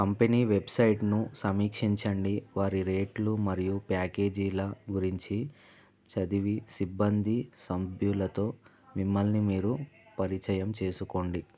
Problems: constant background noise